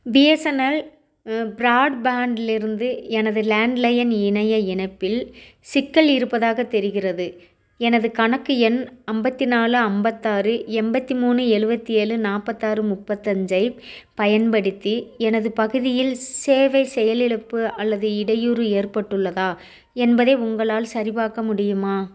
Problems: none marked